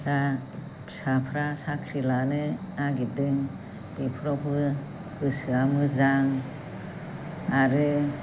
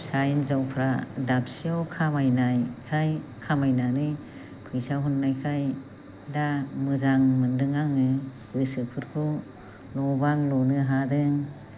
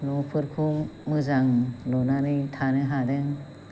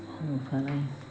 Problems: constant background noise